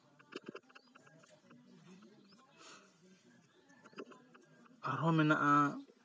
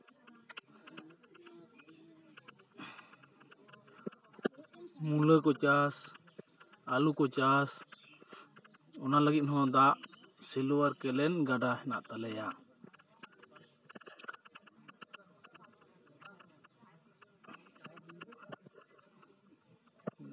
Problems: constant background noise, continuous background conversations